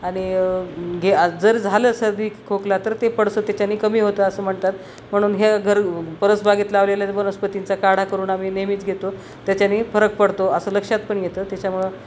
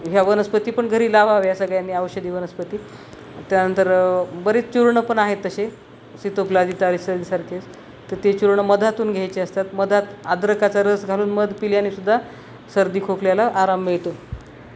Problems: none marked